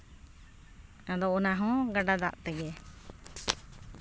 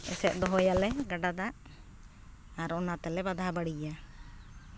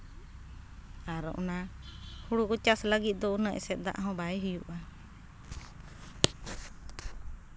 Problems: none marked